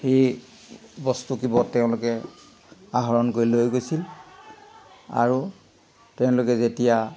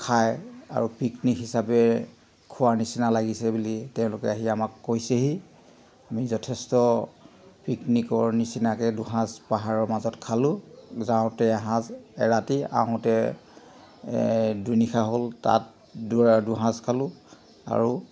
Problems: background sounds at intervals